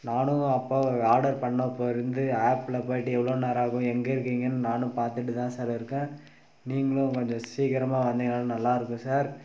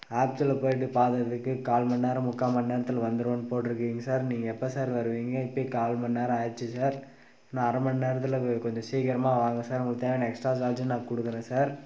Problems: none marked